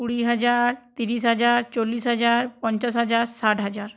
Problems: none marked